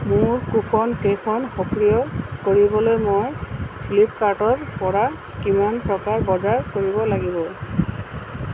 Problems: constant background noise